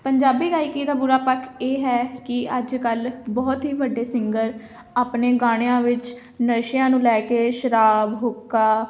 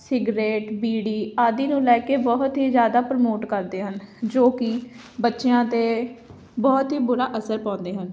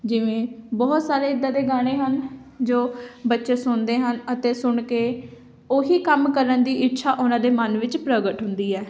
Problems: none marked